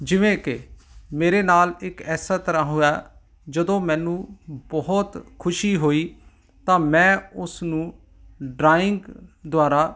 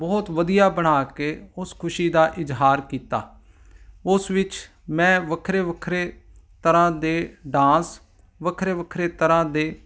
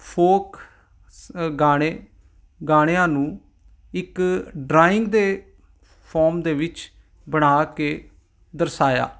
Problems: none marked